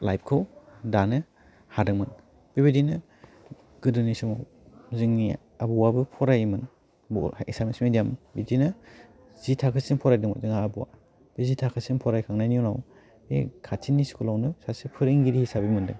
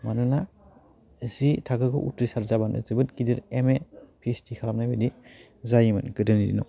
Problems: low volume